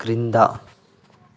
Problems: none marked